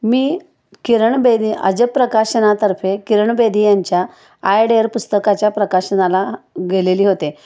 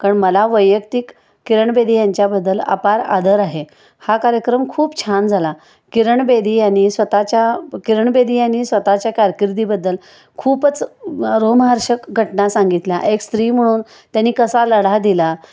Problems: none marked